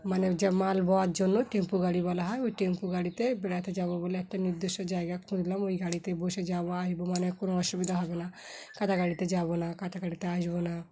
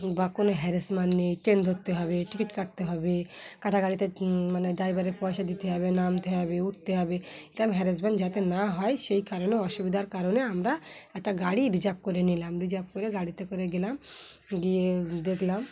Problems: background sounds at intervals